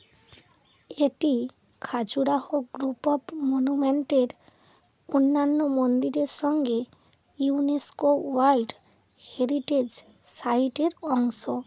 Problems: constant background noise